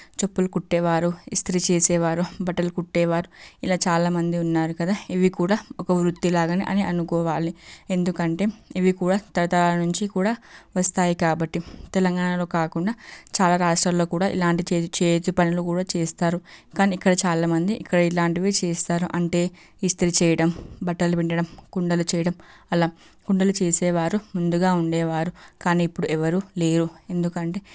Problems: none marked